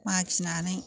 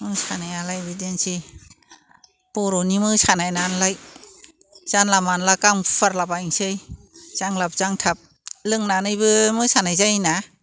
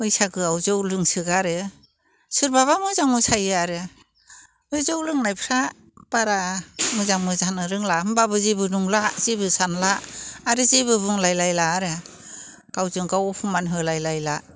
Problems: constant background noise